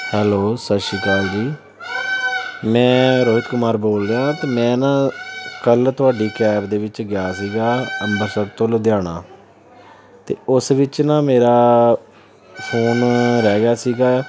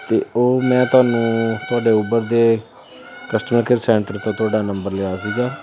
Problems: constant background noise